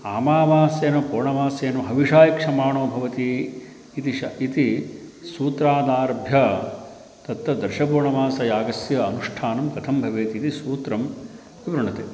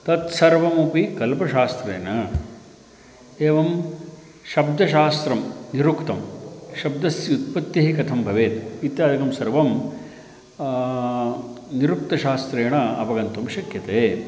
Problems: none marked